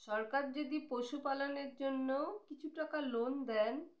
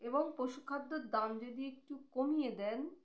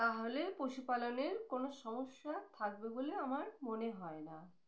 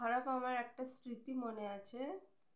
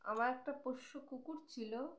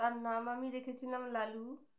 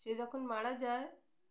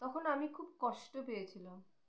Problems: none marked